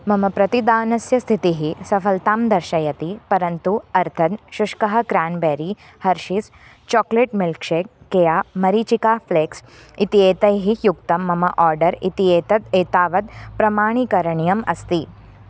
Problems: none marked